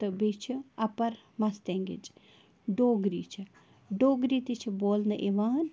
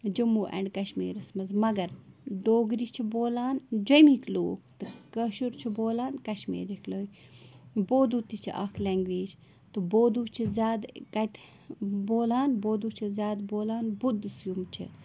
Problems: constant background noise, background conversations at intervals